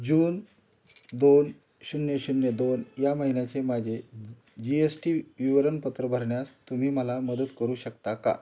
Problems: constant background noise, background conversations at intervals